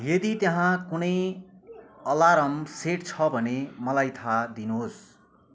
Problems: background conversations at intervals